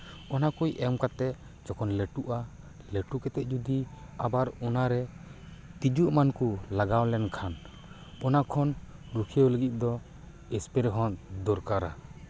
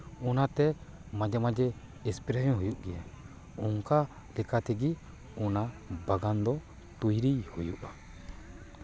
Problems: background sounds at intervals, background conversations at intervals